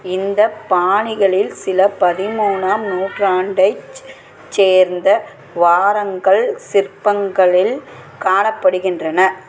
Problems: constant background noise, background conversations at intervals